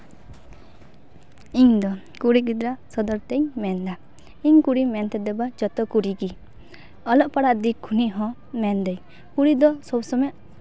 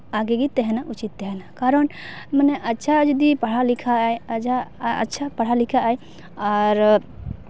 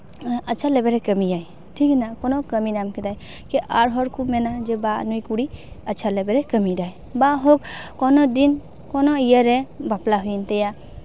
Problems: none marked